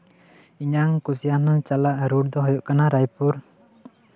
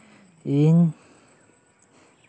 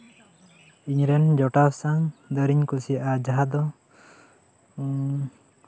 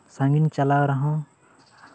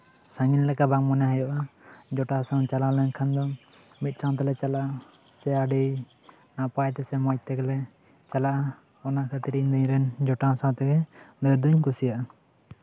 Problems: constant background noise, background conversations at intervals